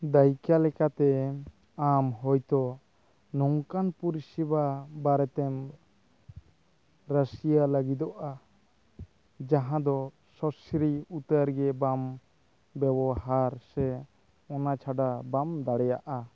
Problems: none marked